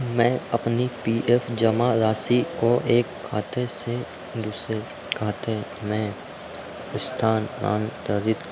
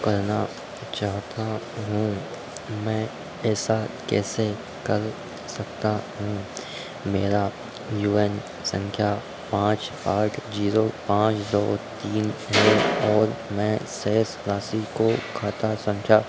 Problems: background sounds at intervals